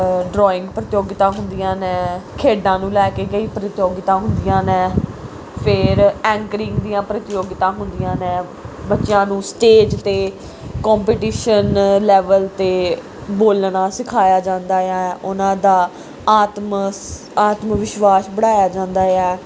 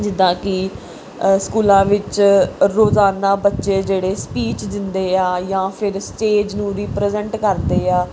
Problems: none marked